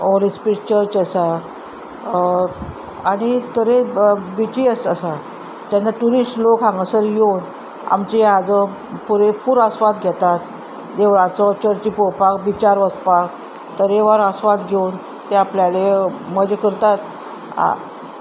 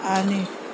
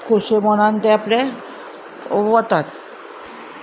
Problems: constant background noise